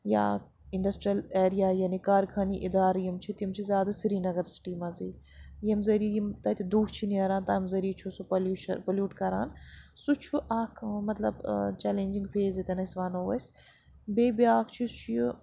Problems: constant background noise